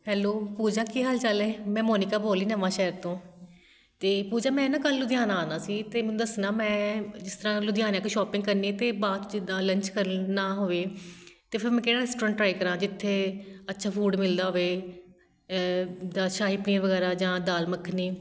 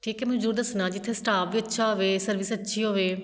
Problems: none marked